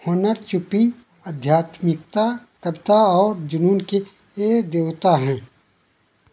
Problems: constant background noise